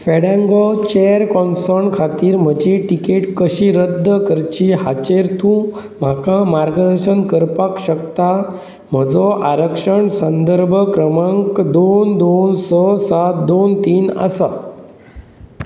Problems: none marked